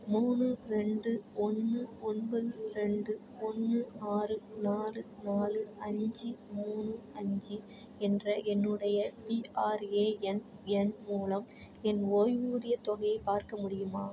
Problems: constant background noise